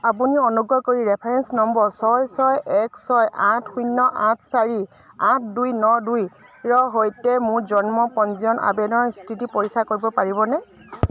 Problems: none marked